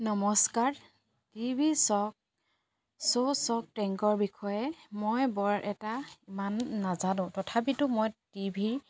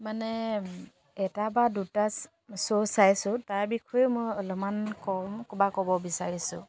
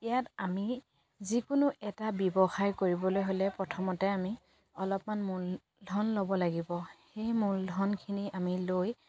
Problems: none marked